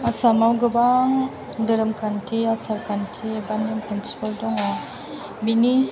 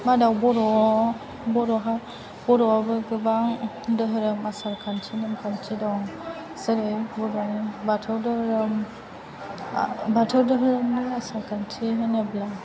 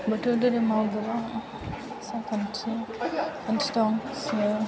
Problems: continuous background conversations, low volume